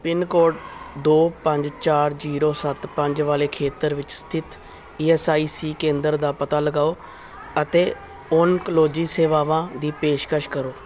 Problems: none marked